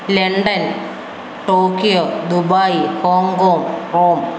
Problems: none marked